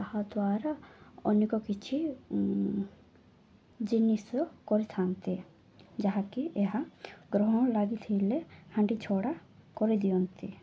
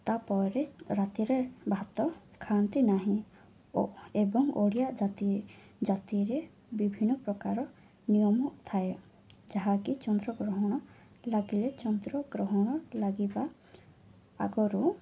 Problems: low volume